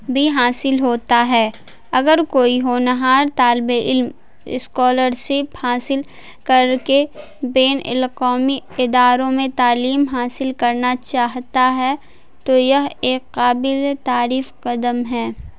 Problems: constant background noise